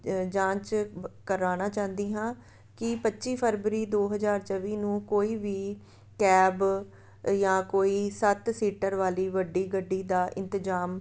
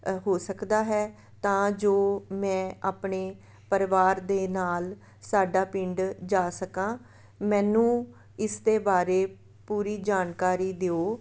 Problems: none marked